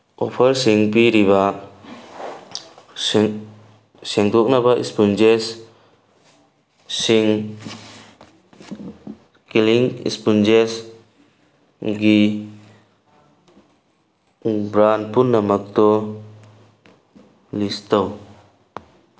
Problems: constant background noise